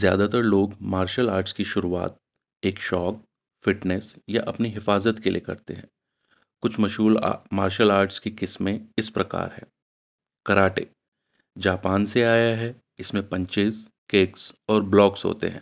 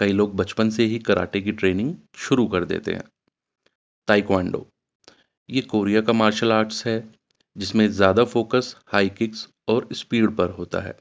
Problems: none marked